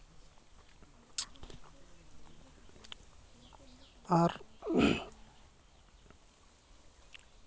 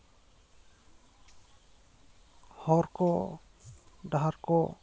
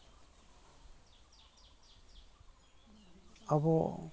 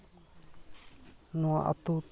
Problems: none marked